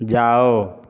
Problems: background conversations at intervals